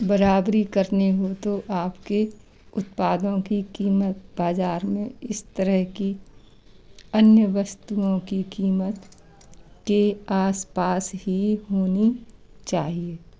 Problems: constant background noise, background conversations at intervals